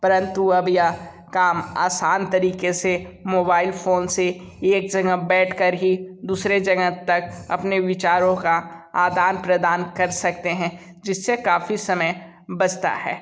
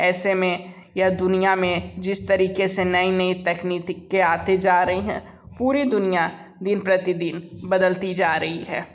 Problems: none marked